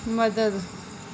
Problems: none marked